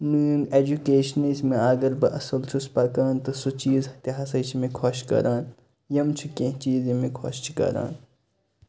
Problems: constant background noise